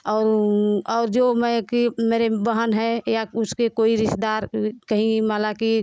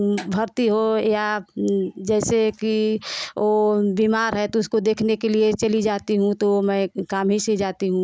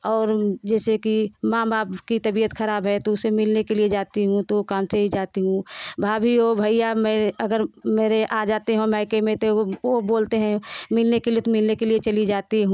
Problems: constant background noise